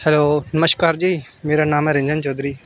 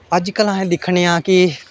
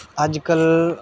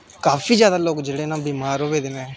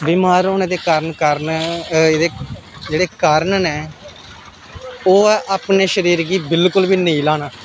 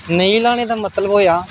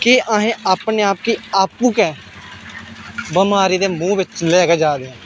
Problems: none marked